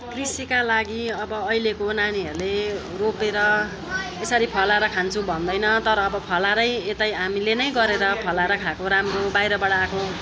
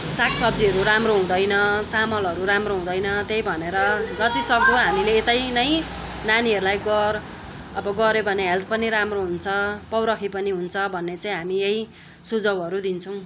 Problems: constant background noise, continuous background conversations